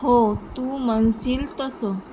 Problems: constant background noise